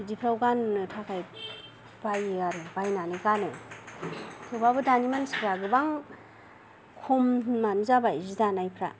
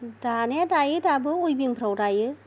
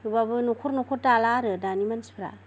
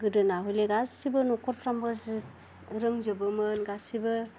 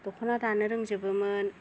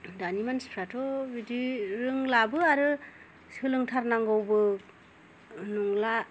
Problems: low volume